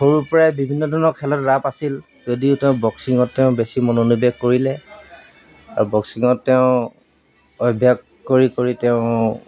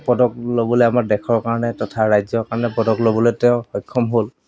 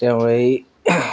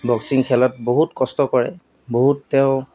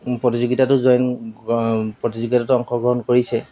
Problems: background sounds at intervals, background conversations at intervals